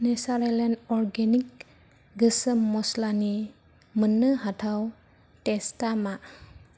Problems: low volume